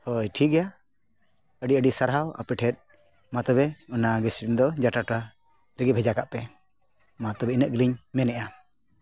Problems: none marked